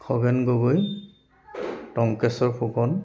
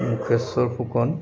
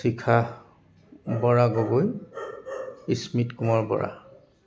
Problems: constant background noise, background conversations at intervals